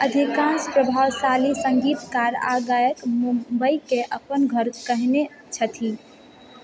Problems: continuous background conversations